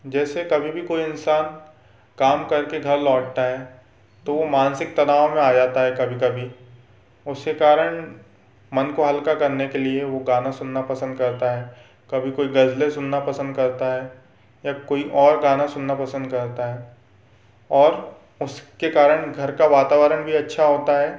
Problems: none marked